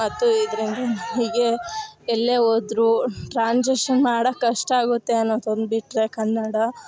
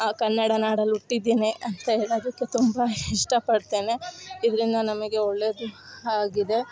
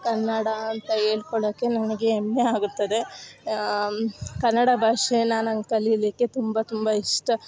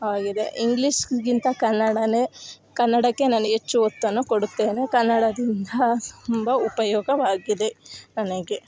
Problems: background sounds at intervals